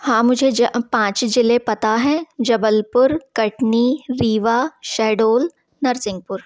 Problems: constant background noise